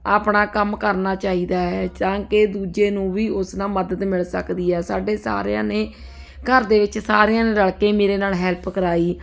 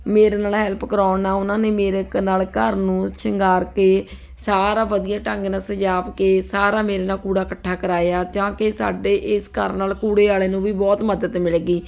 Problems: none marked